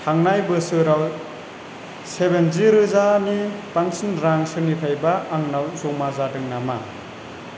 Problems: constant background noise